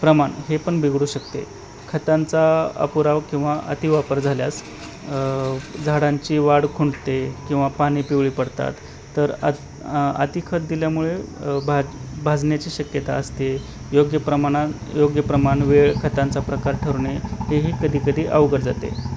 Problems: none marked